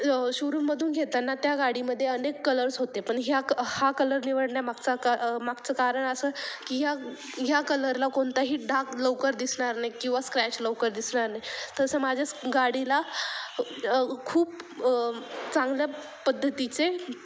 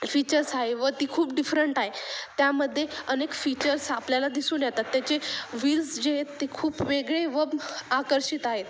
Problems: constant background noise, background conversations at intervals